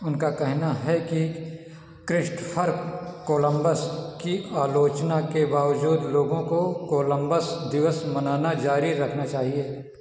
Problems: echo